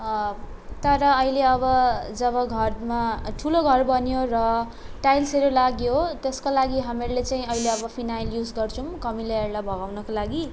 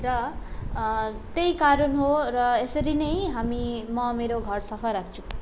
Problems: background sounds at intervals